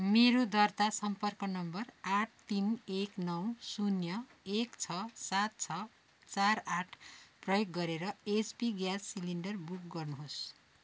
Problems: constant background noise